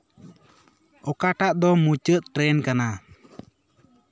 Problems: continuous background conversations